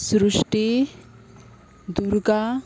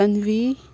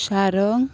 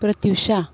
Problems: constant background noise